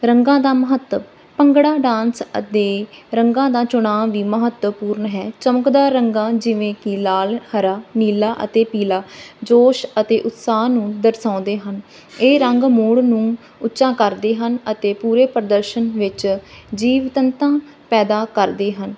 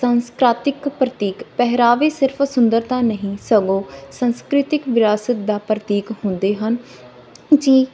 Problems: none marked